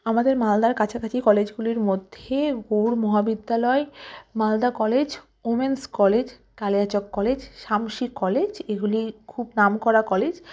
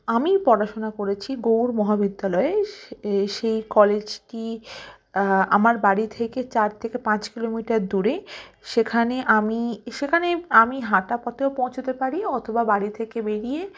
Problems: constant background noise